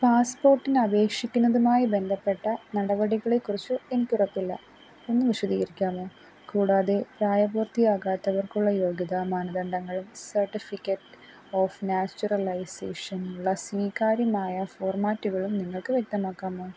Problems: constant background noise